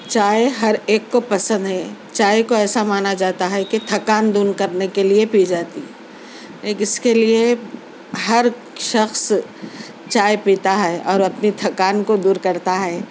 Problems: constant background noise